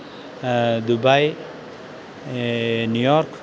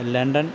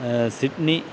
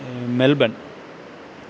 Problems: constant background noise, background conversations at intervals